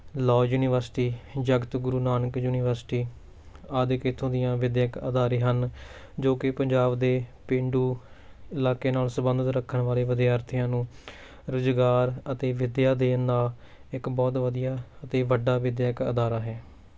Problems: none marked